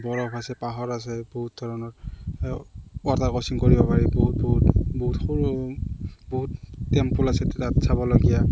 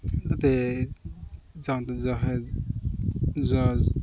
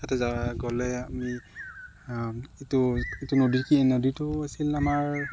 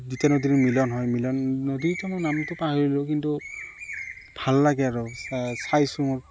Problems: none marked